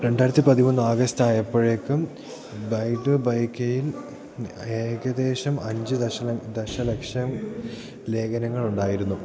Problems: background sounds at intervals